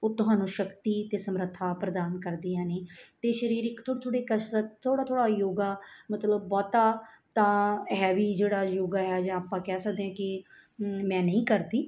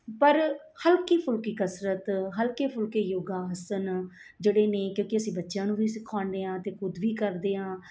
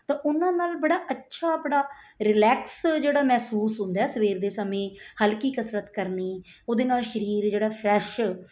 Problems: background sounds at intervals